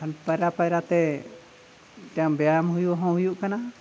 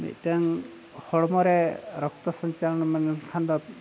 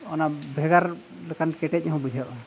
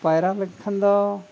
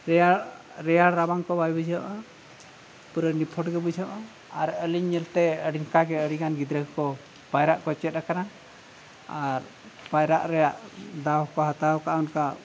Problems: none marked